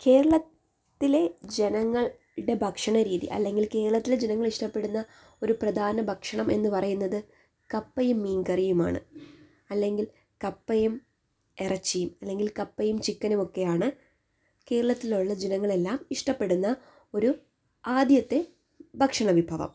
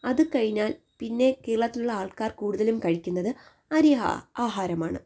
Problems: none marked